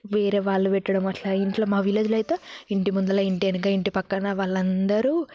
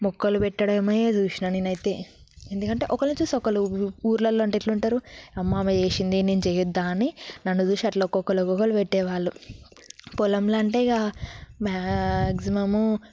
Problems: background sounds at intervals